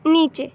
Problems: background sounds at intervals, background conversations at intervals